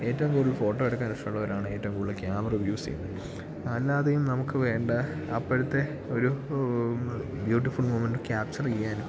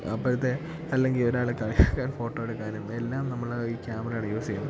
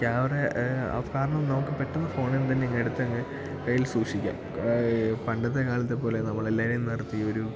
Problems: background sounds at intervals